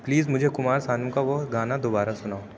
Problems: none marked